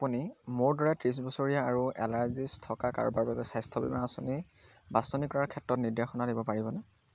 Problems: none marked